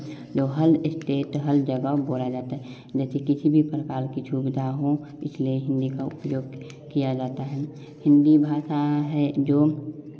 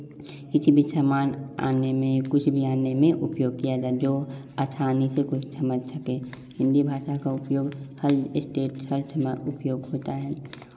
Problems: background sounds at intervals, background conversations at intervals